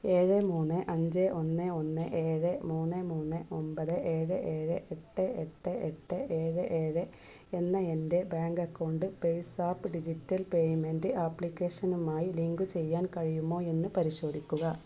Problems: low volume